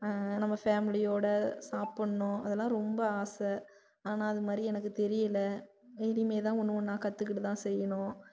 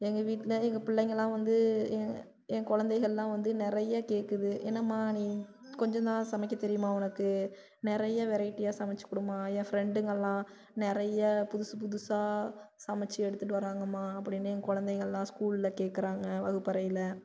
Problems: low volume